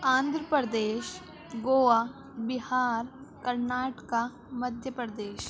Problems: constant background noise, continuous background conversations